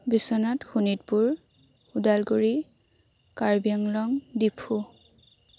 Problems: constant background noise, background conversations at intervals